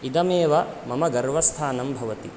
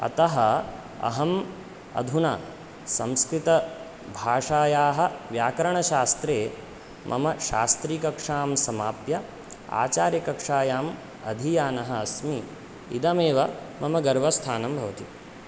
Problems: none marked